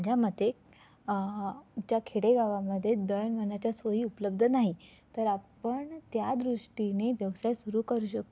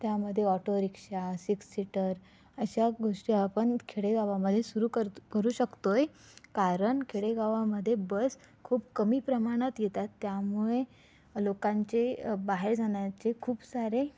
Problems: none marked